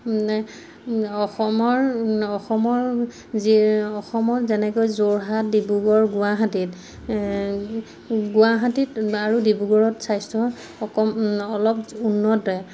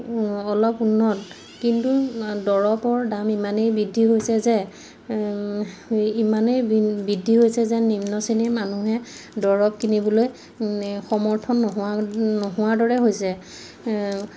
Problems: background sounds at intervals